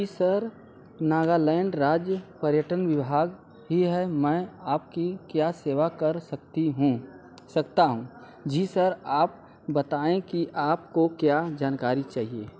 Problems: constant background noise